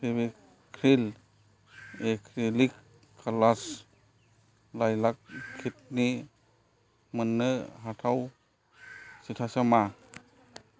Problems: low volume